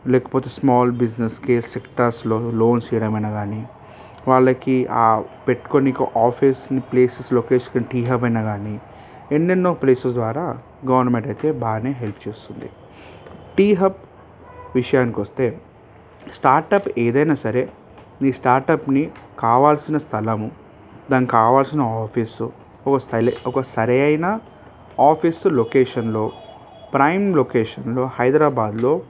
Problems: background sounds at intervals